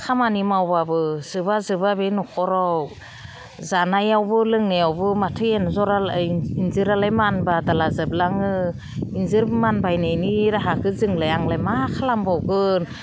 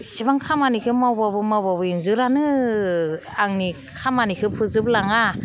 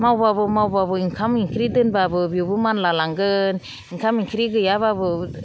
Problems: none marked